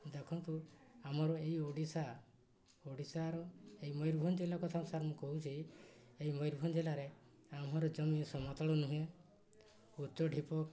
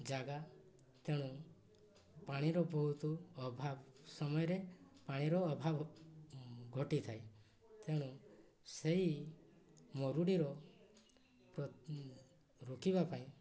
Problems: low volume